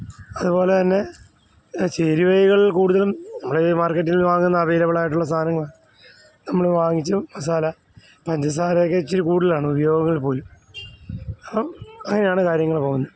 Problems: none marked